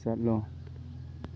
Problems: constant background noise